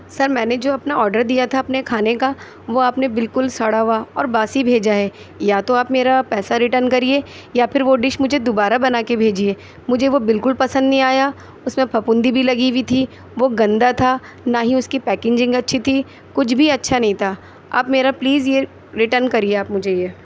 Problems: none marked